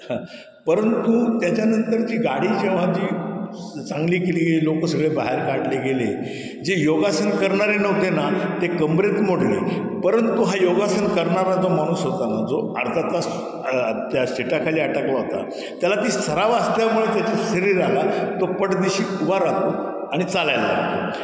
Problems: constant background noise, echo